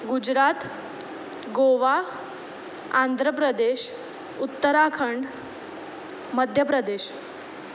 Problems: none marked